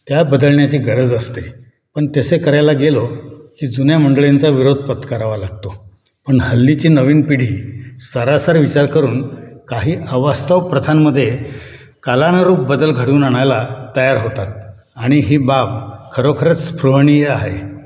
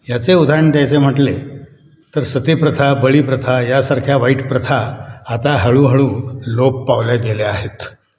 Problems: none marked